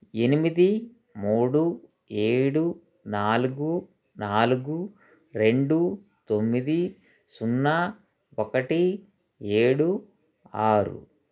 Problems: constant background noise, background conversations at intervals